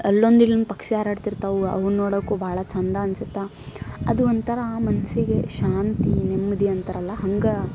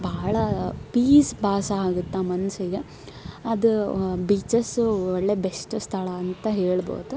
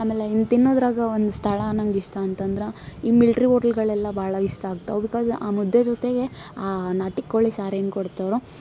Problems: none marked